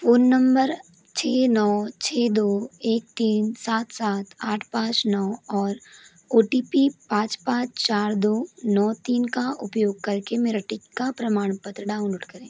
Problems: constant background noise